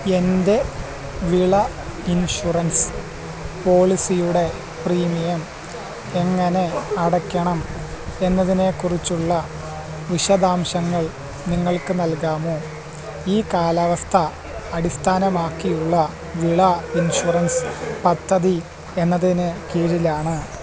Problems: constant background noise, low volume